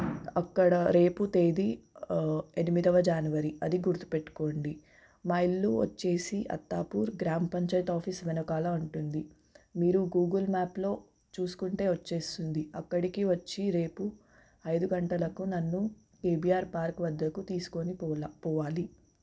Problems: background sounds at intervals